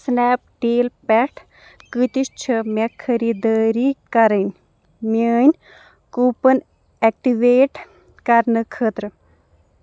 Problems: background sounds at intervals